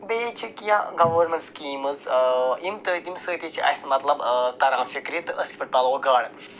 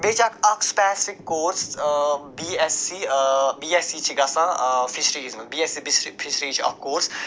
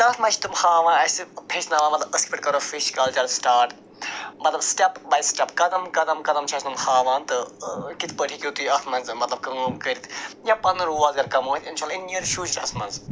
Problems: constant background noise